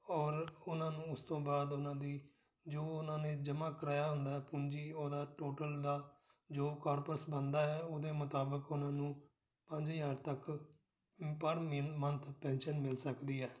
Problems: none marked